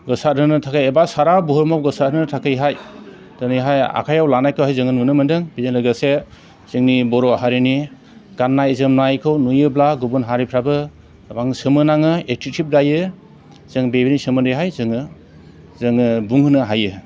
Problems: constant background noise